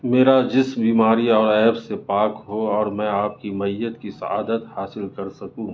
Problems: background sounds at intervals